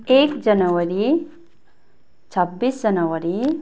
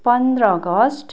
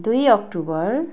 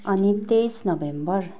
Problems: continuous background conversations